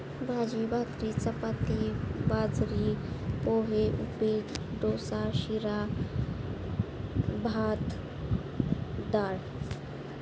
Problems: constant background noise